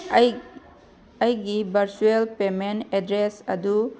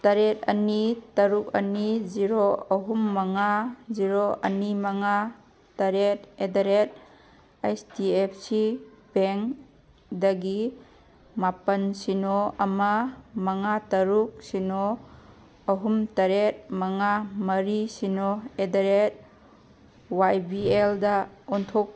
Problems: background sounds at intervals